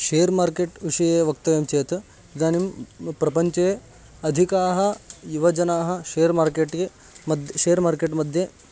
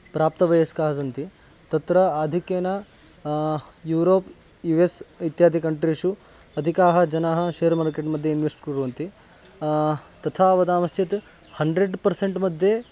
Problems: constant background noise